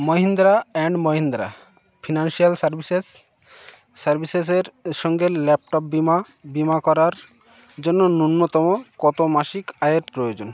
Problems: none marked